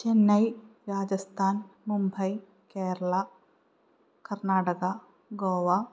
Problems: low volume